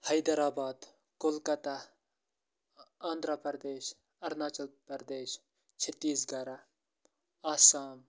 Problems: none marked